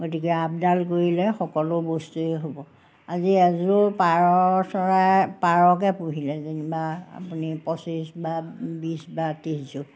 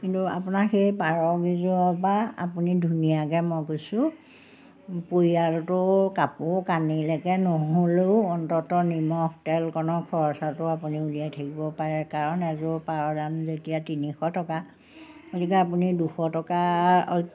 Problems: background sounds at intervals